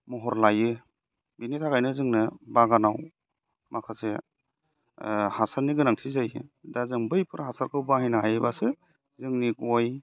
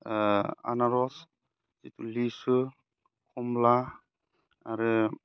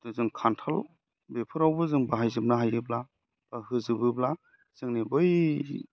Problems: none marked